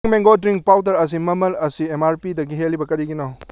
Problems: low volume